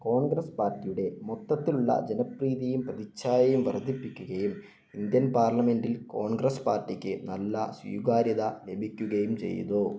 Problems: low volume